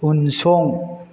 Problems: constant background noise